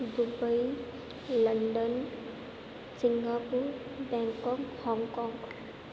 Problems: constant background noise, echo